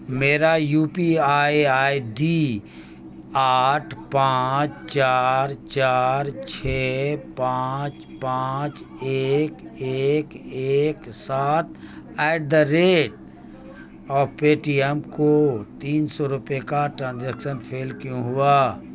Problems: constant background noise